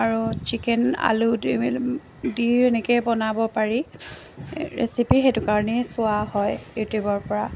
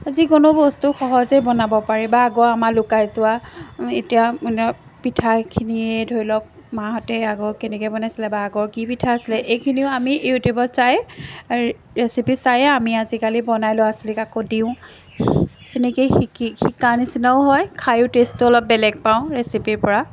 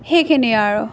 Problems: constant background noise, background conversations at intervals